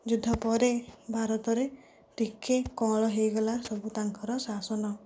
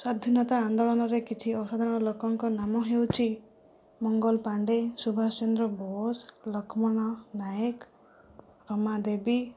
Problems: low volume